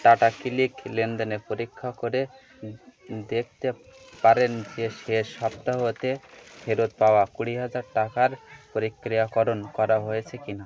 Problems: continuous background conversations